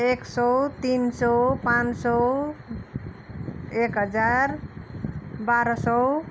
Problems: constant background noise